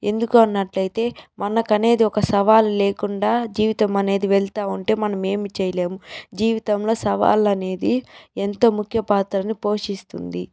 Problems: background sounds at intervals